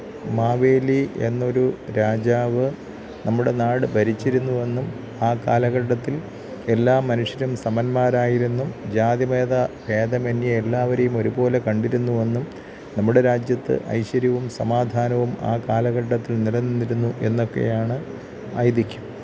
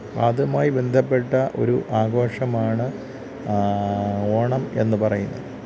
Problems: background sounds at intervals, low volume